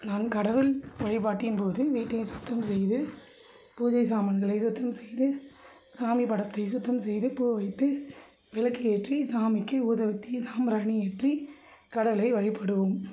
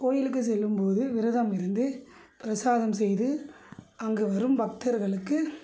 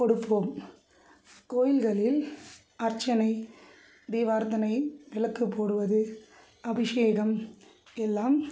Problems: none marked